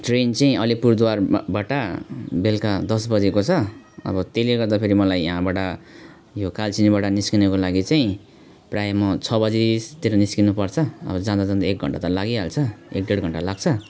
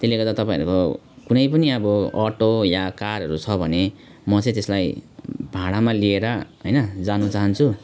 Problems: none marked